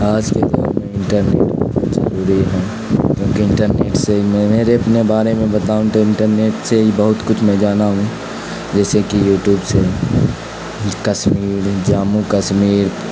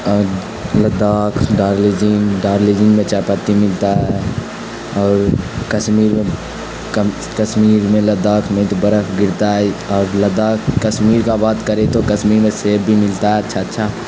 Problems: constant background noise